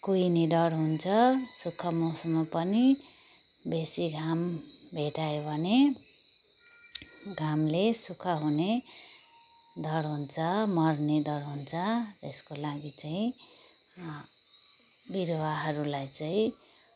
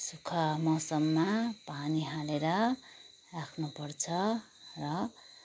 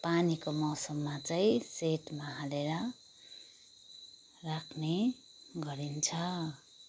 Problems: background sounds at intervals